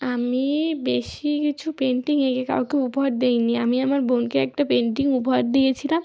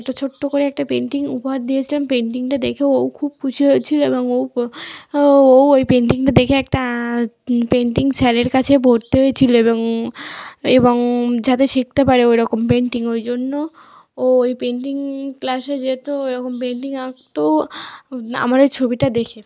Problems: constant background noise